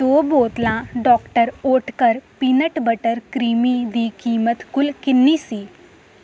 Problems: constant background noise